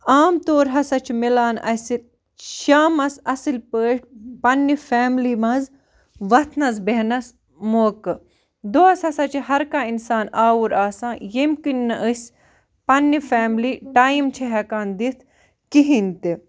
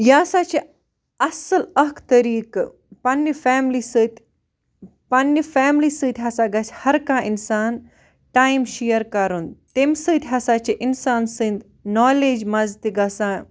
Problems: background sounds at intervals